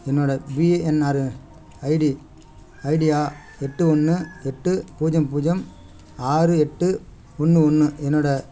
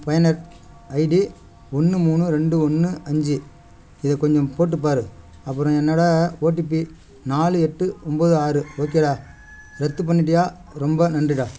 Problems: background sounds at intervals